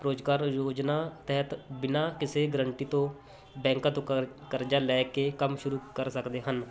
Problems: constant background noise